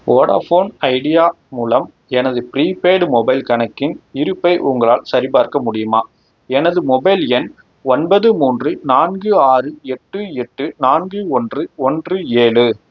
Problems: none marked